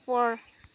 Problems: constant background noise